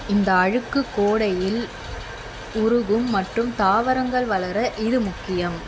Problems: constant background noise